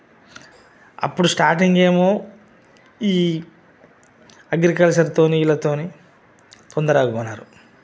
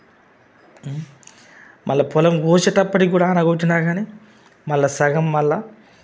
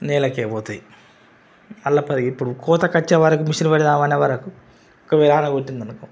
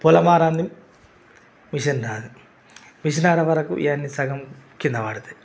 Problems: constant background noise